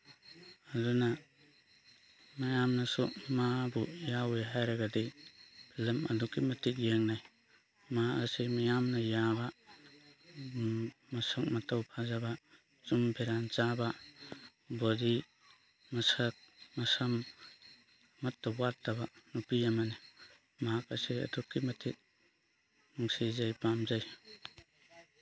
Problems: background sounds at intervals